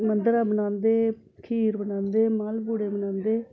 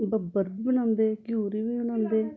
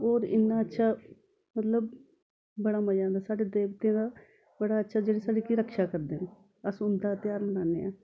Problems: background sounds at intervals, continuous background conversations